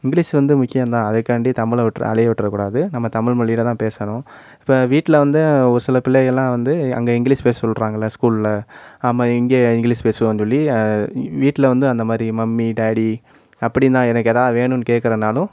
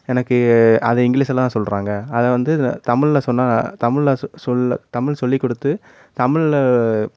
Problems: constant background noise